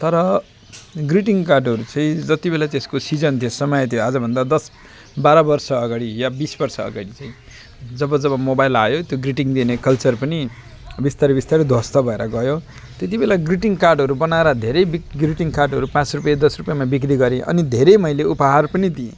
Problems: constant background noise